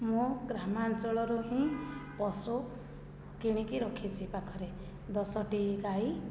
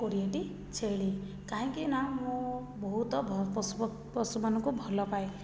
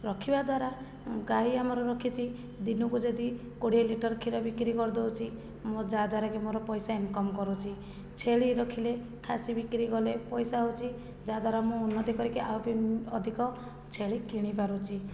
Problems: low volume